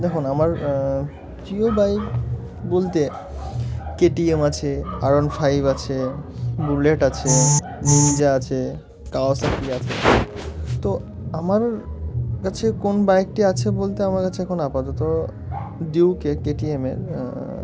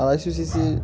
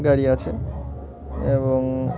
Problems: constant background noise, continuous background conversations